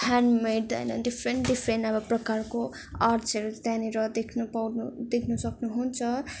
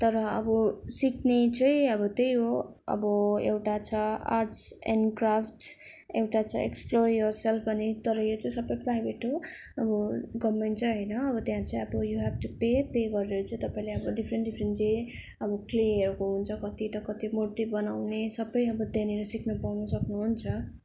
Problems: none marked